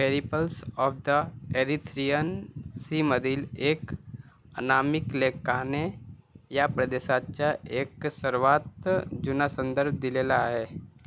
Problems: constant background noise